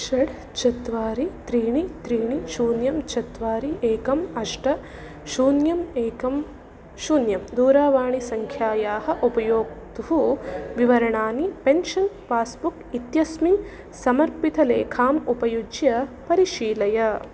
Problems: none marked